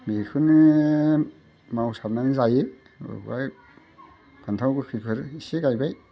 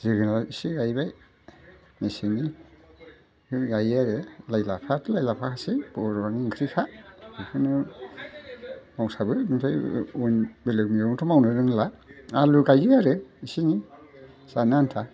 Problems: constant background noise